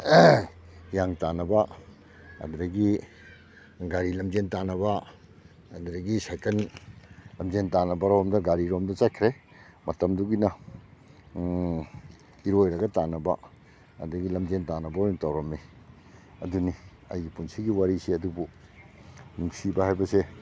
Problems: background sounds at intervals